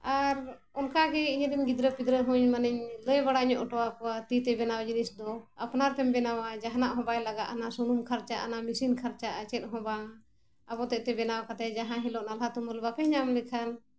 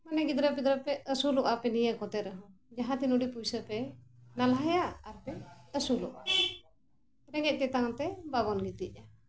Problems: constant background noise